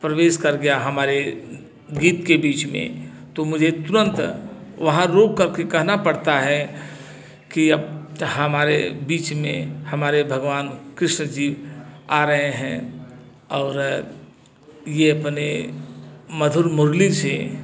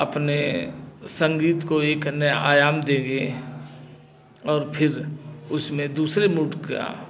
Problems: constant background noise, background conversations at intervals